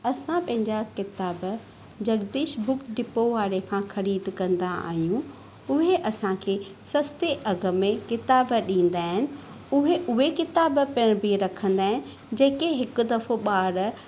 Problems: none marked